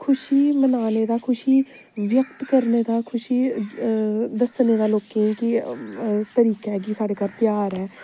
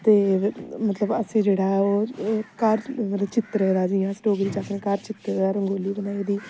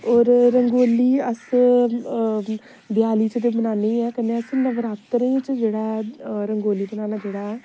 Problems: constant background noise